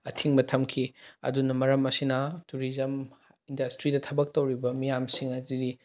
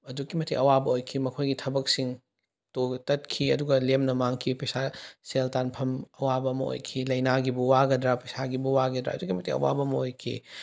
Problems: none marked